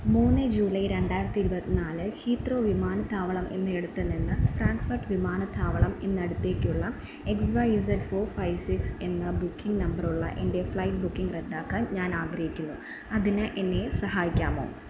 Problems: none marked